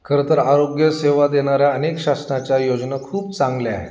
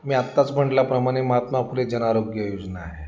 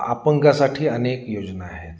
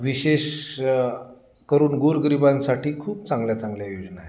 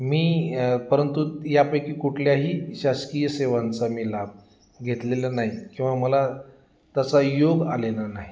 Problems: none marked